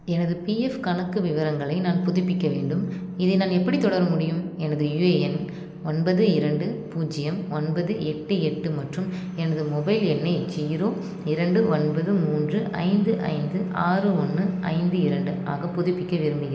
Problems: constant background noise